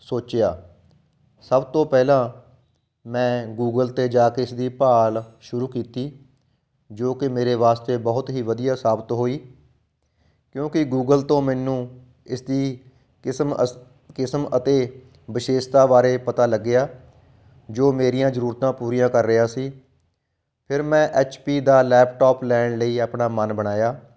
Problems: background sounds at intervals